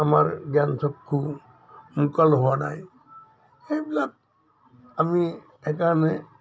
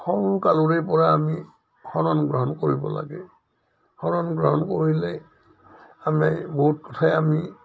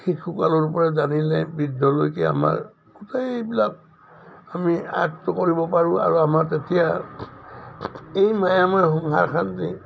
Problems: none marked